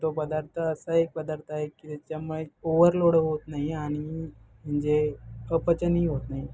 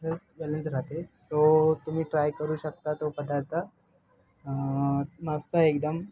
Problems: background sounds at intervals, background conversations at intervals